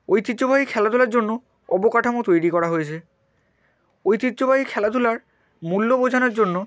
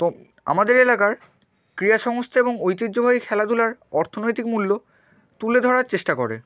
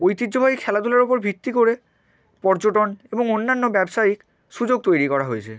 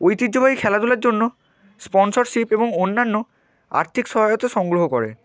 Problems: constant background noise